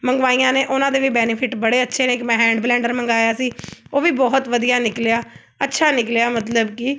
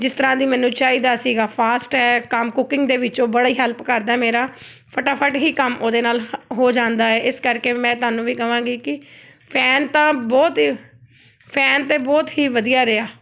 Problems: background sounds at intervals